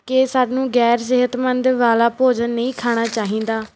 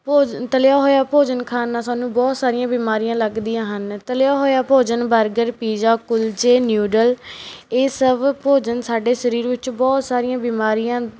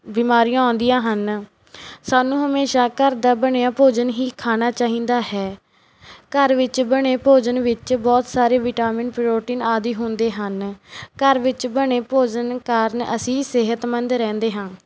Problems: none marked